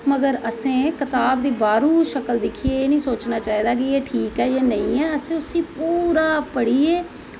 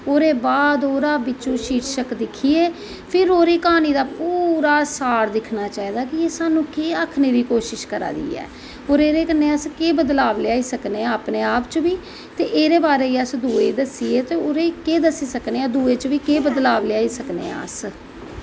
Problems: constant background noise